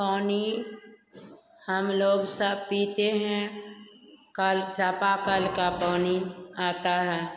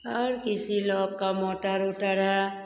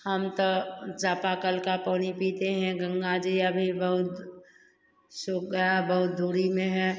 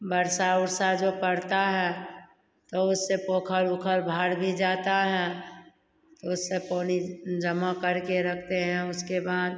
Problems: none marked